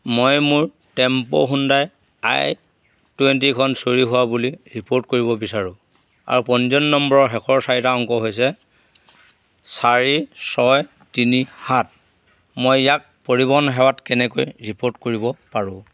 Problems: none marked